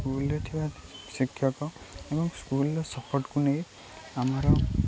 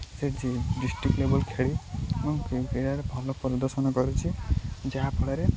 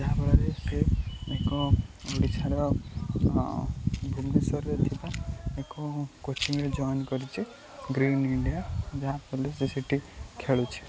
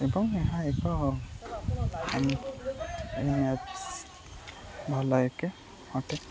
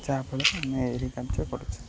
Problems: constant background noise, continuous background conversations